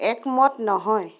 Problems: none marked